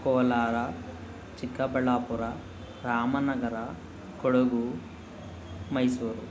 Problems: none marked